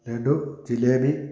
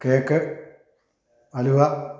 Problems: none marked